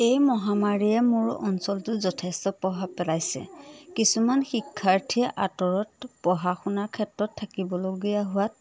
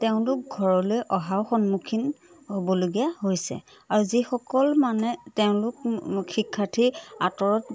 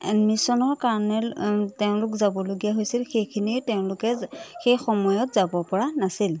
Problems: none marked